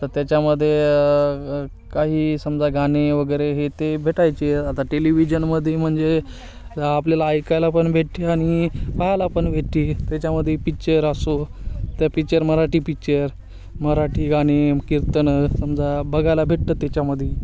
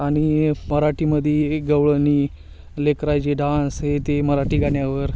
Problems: constant background noise, continuous background conversations